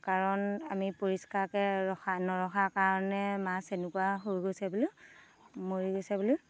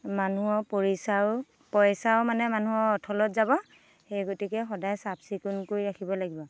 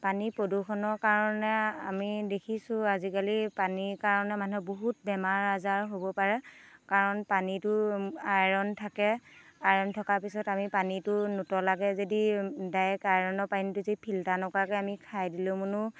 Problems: none marked